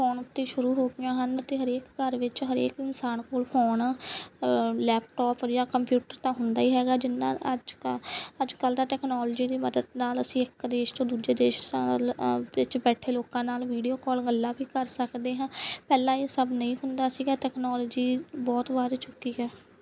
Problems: background sounds at intervals